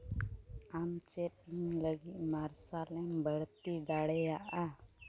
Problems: background sounds at intervals